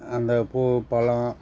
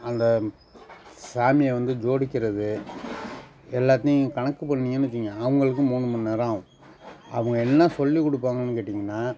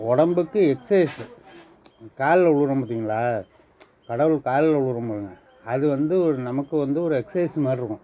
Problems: constant background noise